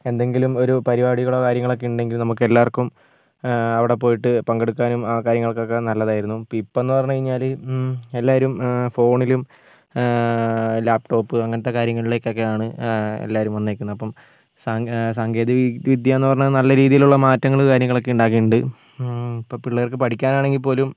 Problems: none marked